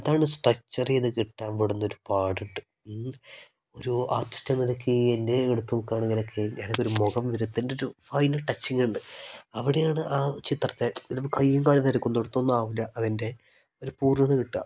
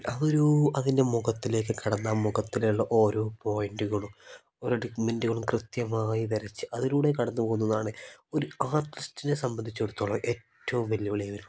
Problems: none marked